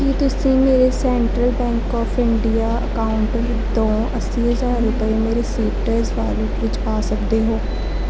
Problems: none marked